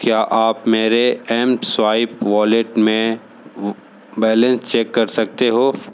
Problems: constant background noise